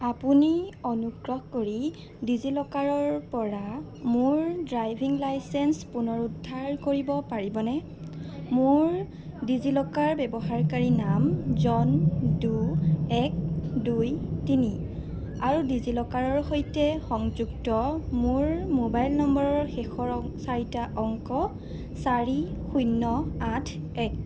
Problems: background sounds at intervals